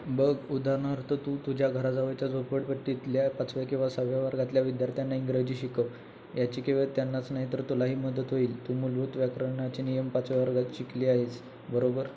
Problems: constant background noise